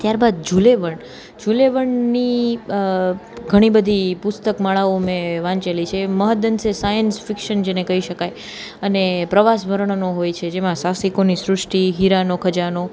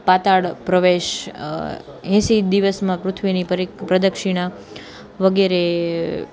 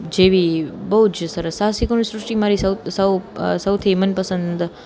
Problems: none marked